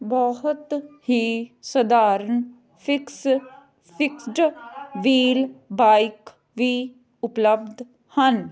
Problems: background conversations at intervals